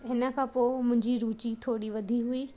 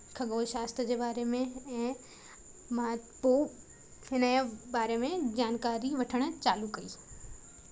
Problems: constant background noise